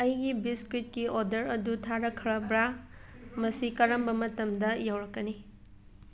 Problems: background conversations at intervals